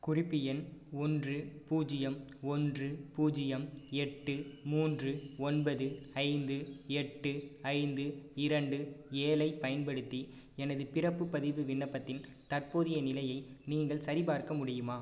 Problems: low volume